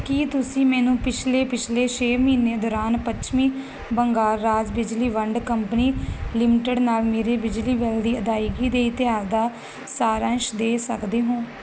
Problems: constant background noise